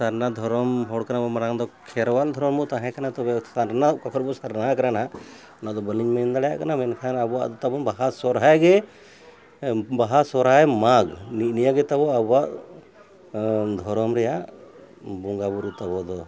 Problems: continuous background conversations